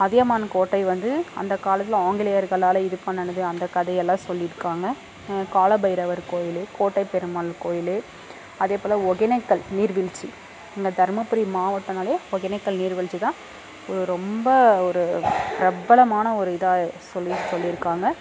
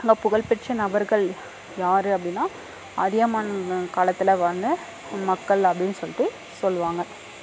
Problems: constant background noise, background conversations at intervals